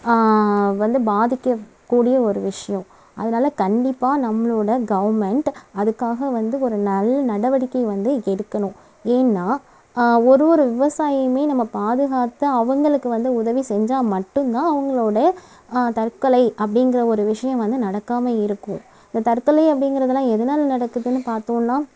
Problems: background sounds at intervals